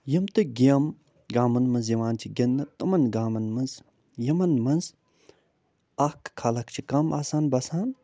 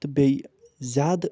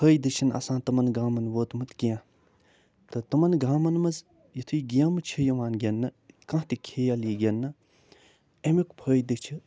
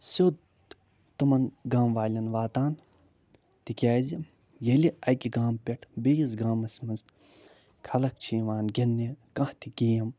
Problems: none marked